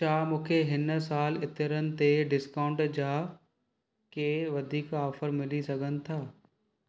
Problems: none marked